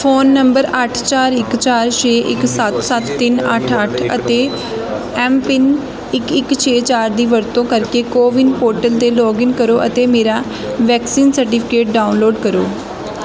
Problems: constant background noise, continuous background conversations